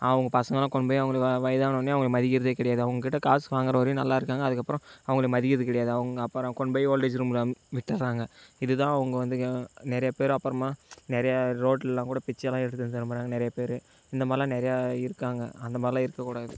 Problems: background sounds at intervals